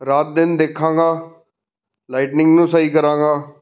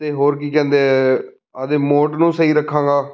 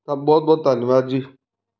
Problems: none marked